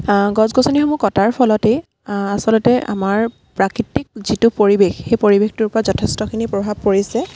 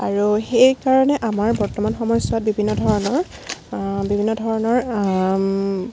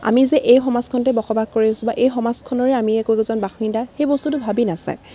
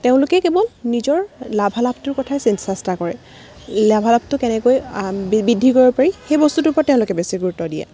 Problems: none marked